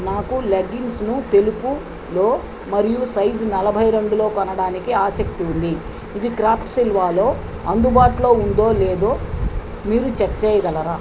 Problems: constant background noise